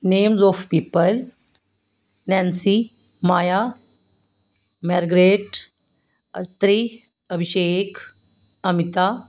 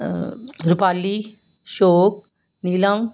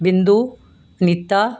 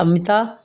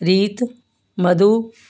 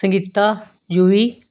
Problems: background sounds at intervals, background conversations at intervals